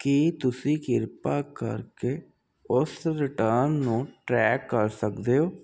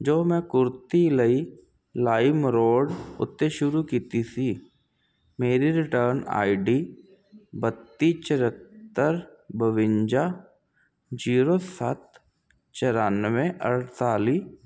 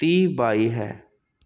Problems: constant background noise